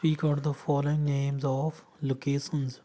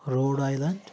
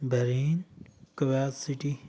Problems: none marked